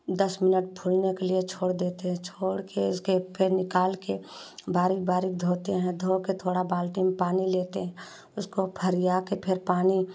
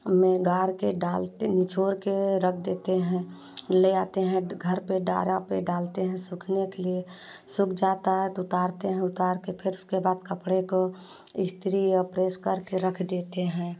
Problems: constant background noise